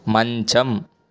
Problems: none marked